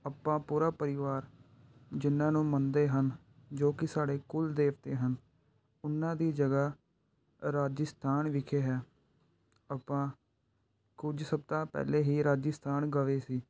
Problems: background sounds at intervals